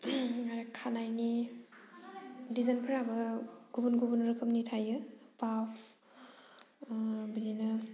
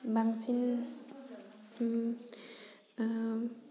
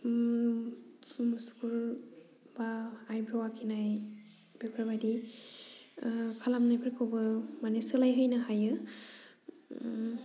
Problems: none marked